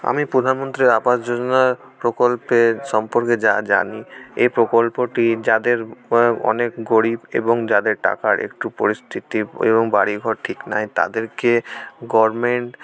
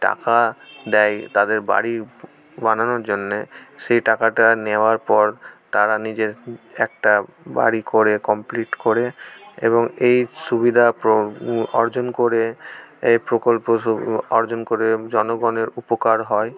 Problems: background sounds at intervals, background conversations at intervals